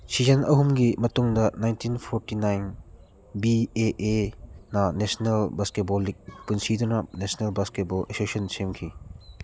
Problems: background sounds at intervals